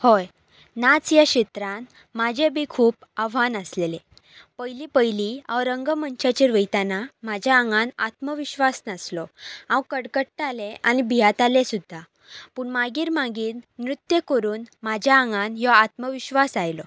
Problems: none marked